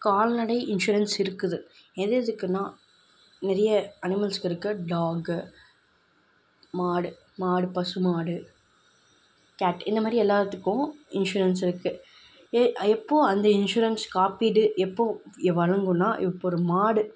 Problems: none marked